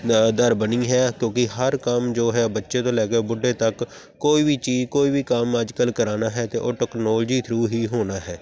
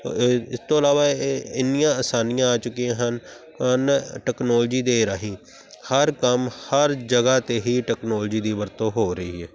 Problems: constant background noise